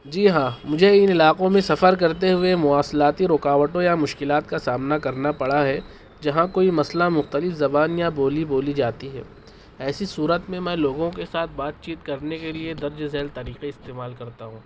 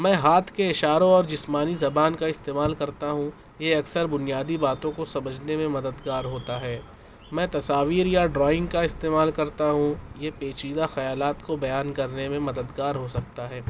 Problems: constant background noise